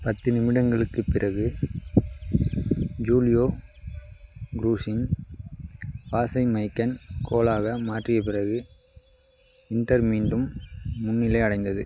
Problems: none marked